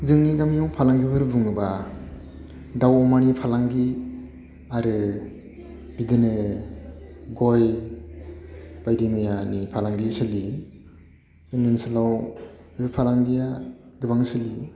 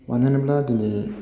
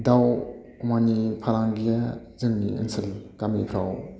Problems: constant background noise